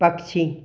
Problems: echo